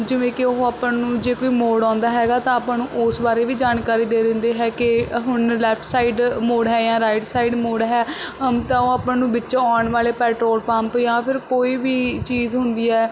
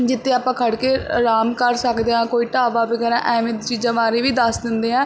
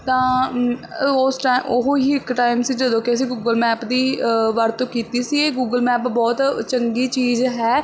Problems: constant background noise